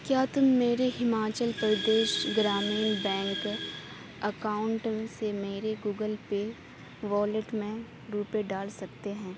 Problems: constant background noise